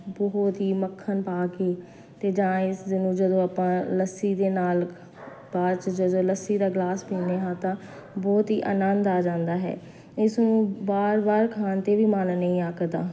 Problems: constant background noise